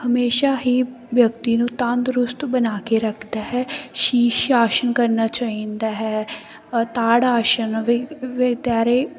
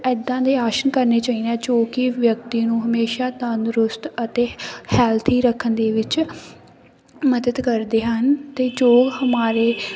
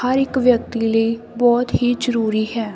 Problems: none marked